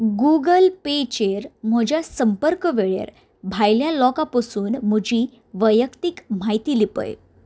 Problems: none marked